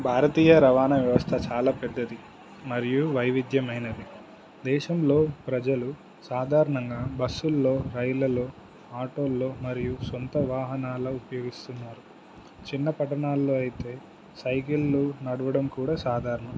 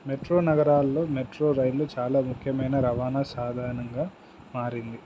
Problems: constant background noise